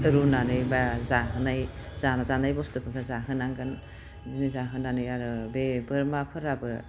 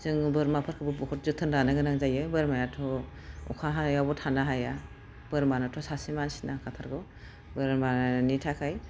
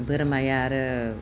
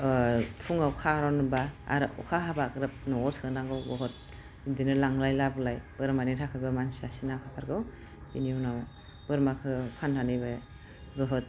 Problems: none marked